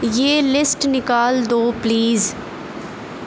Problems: constant background noise